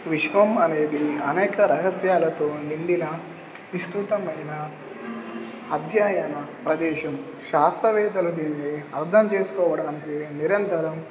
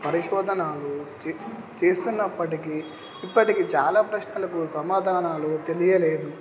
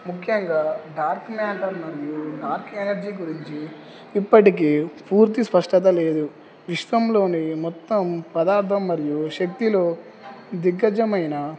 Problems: background sounds at intervals